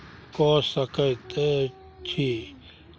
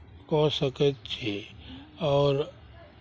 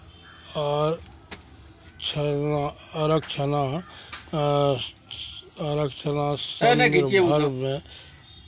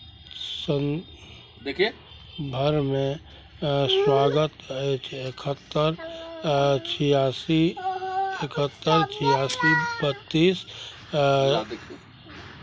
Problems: none marked